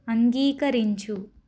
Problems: none marked